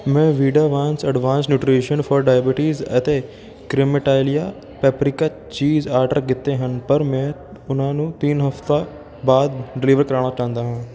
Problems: background sounds at intervals